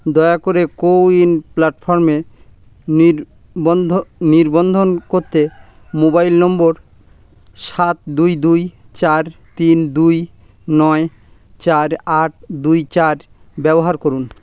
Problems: background sounds at intervals